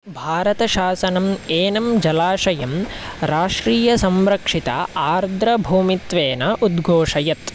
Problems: constant background noise